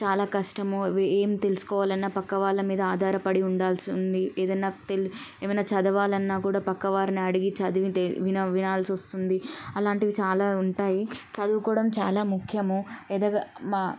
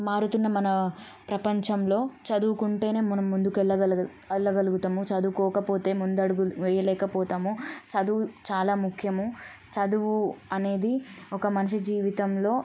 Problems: none marked